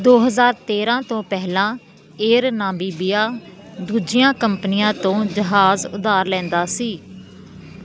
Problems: constant background noise